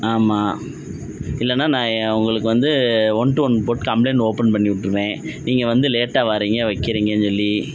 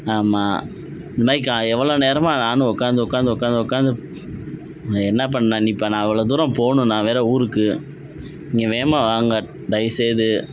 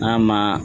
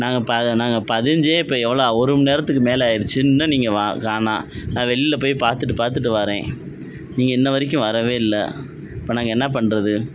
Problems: none marked